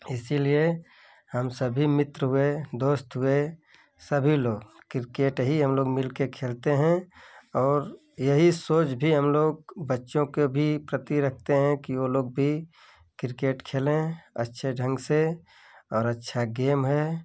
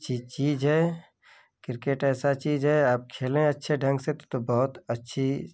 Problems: none marked